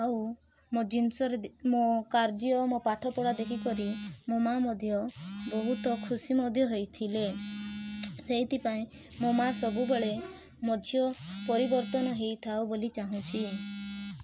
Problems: constant background noise, background conversations at intervals